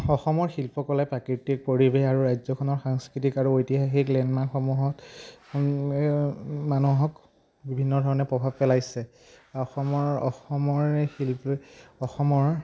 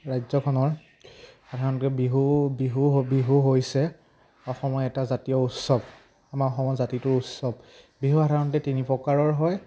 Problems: none marked